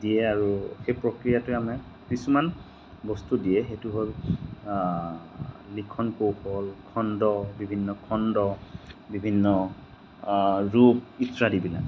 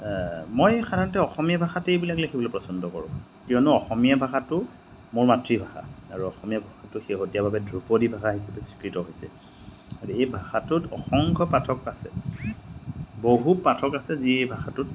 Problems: none marked